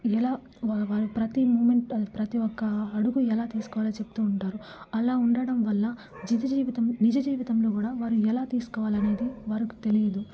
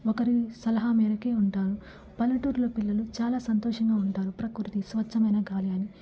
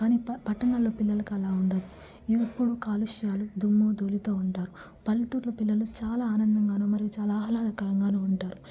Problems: background sounds at intervals, low volume